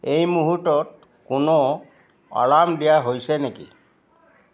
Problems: continuous background conversations